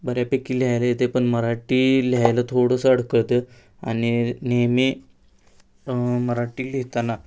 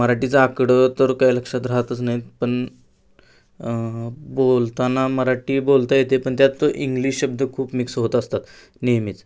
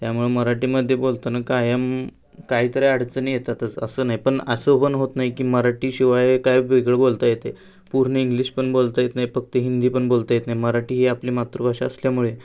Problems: background sounds at intervals